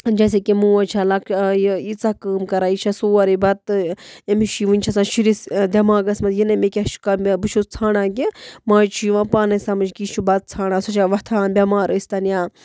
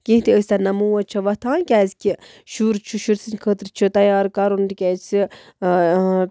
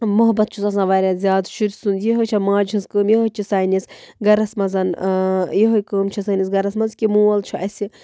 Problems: none marked